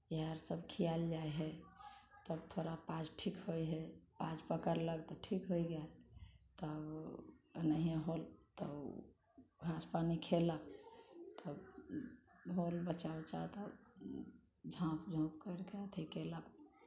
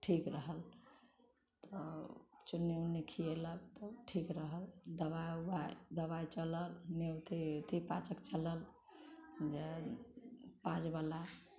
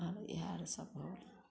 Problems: none marked